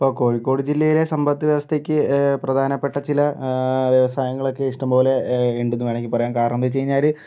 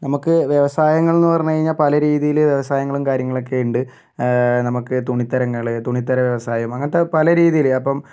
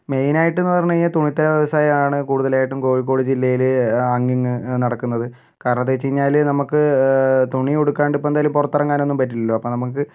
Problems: none marked